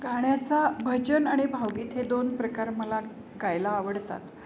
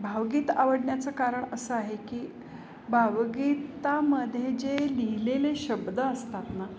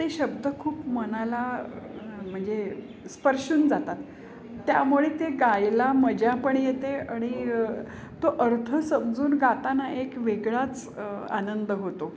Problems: background sounds at intervals